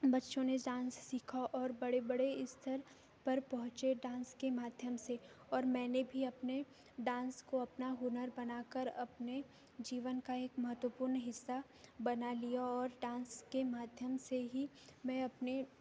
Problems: background sounds at intervals